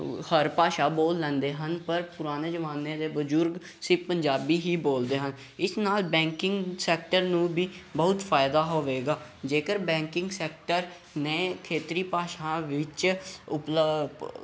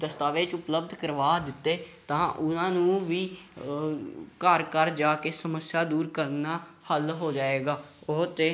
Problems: background sounds at intervals